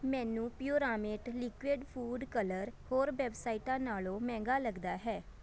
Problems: constant background noise, background conversations at intervals